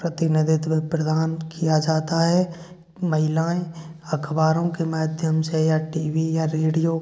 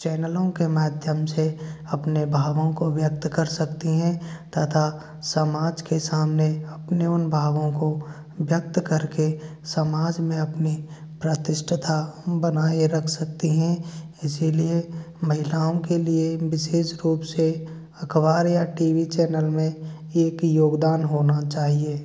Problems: constant background noise